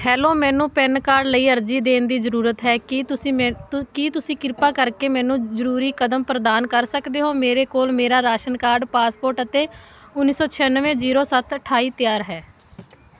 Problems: none marked